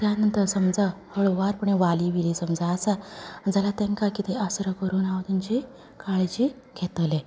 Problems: background conversations at intervals